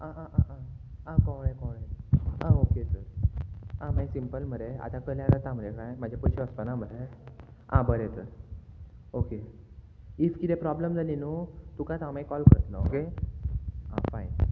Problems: none marked